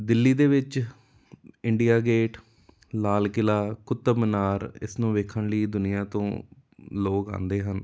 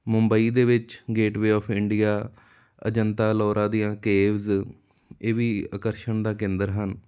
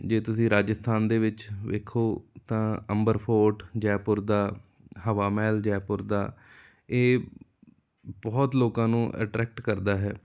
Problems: none marked